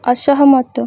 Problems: none marked